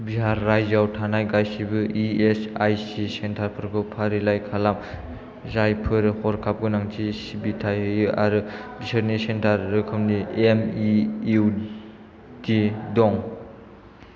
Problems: low volume